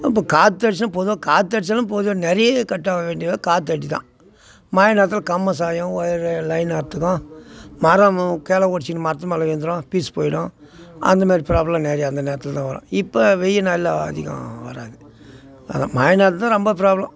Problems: constant background noise